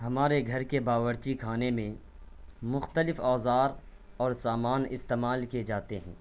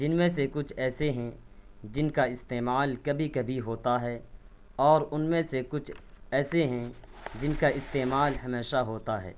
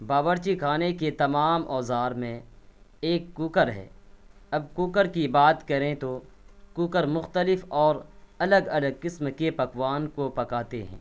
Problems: none marked